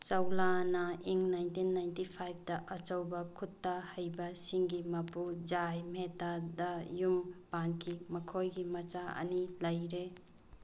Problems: low volume